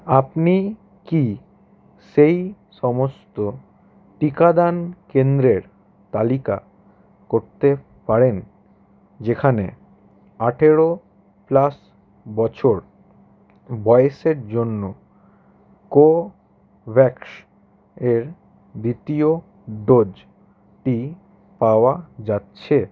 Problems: none marked